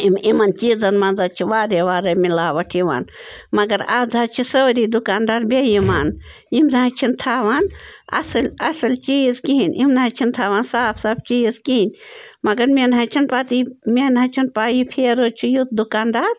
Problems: none marked